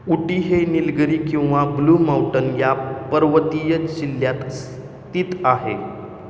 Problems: none marked